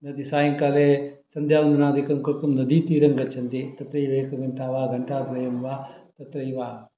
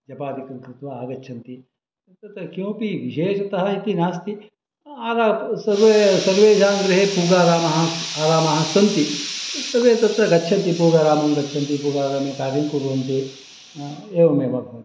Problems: background sounds at intervals